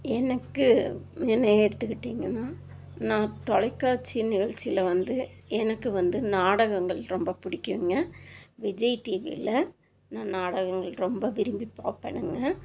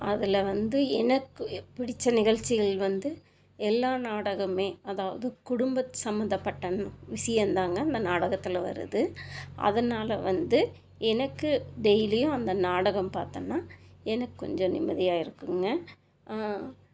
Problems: constant background noise